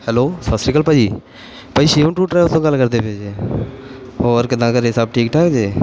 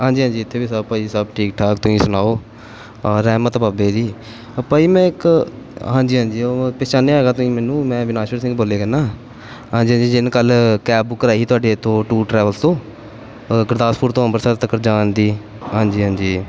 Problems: background sounds at intervals